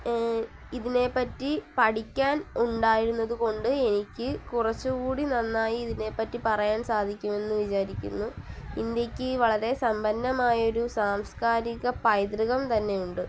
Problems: constant background noise, low volume